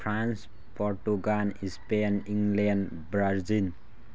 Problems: background sounds at intervals